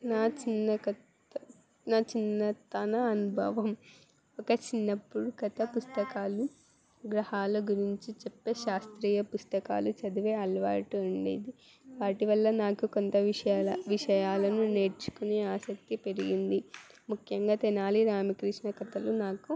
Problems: background sounds at intervals, background conversations at intervals